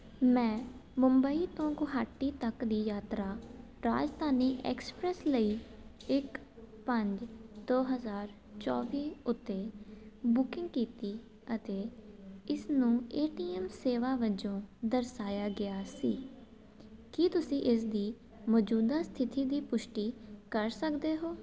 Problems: constant background noise